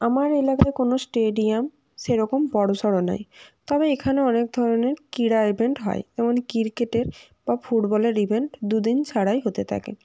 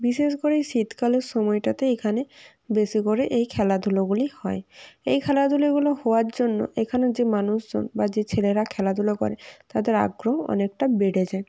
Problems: background sounds at intervals